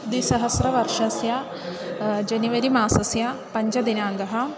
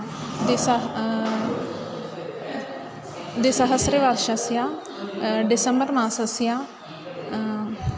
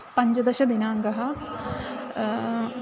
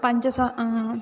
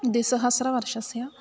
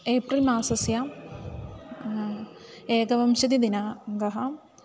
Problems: constant background noise, background conversations at intervals